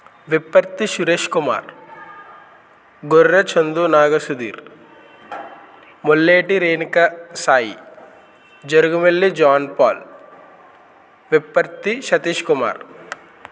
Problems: constant background noise